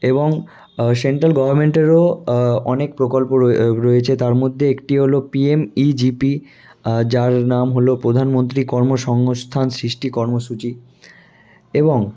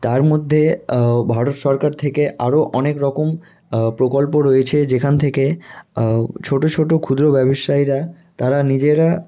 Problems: none marked